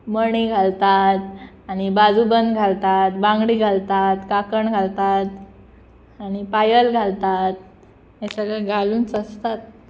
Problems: background sounds at intervals